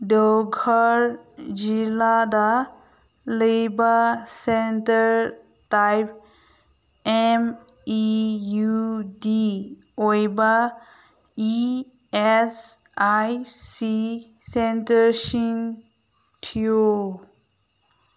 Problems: none marked